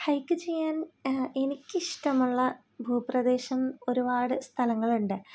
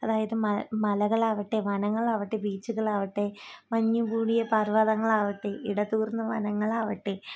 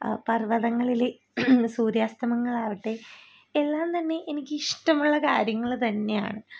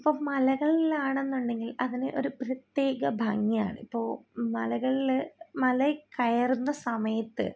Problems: low volume